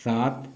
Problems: none marked